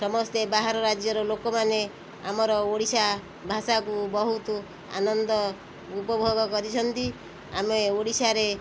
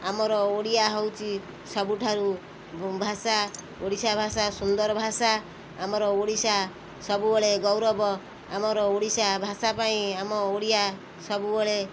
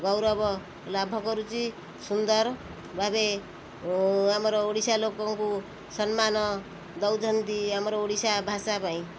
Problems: constant background noise